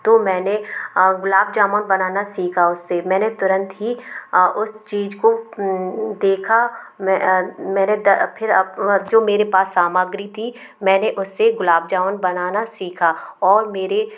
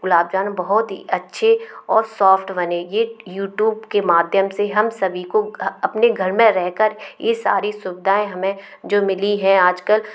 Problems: background sounds at intervals